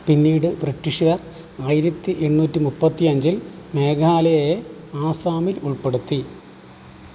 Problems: constant background noise